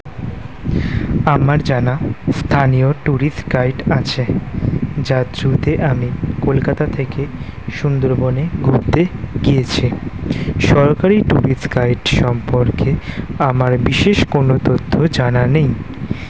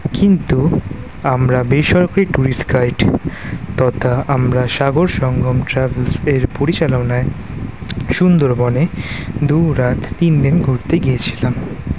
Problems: constant background noise